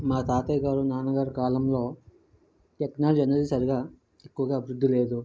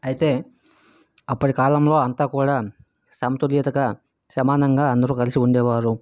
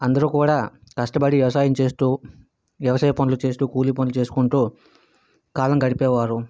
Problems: background sounds at intervals